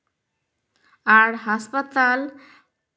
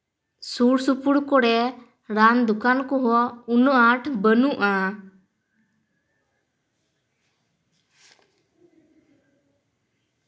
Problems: none marked